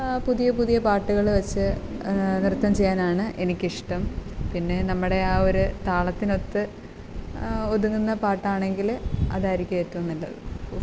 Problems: constant background noise